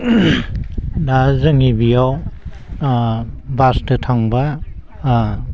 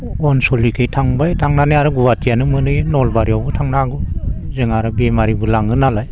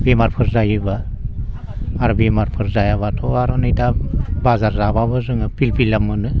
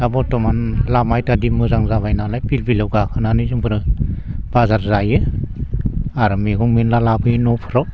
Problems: constant background noise